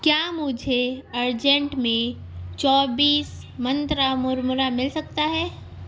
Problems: constant background noise